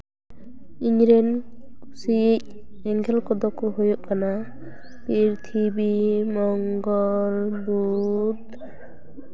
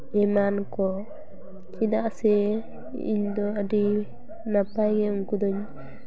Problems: background sounds at intervals, background conversations at intervals